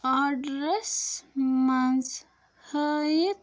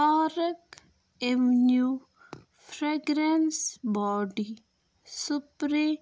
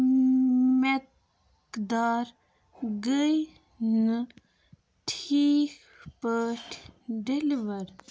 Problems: constant background noise